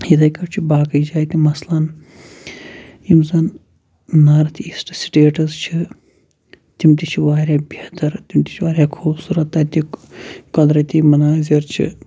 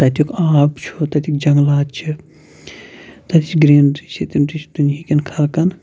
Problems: constant background noise